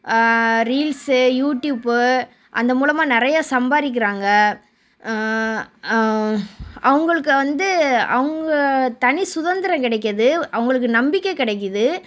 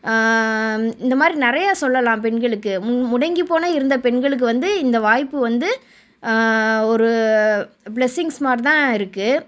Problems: background sounds at intervals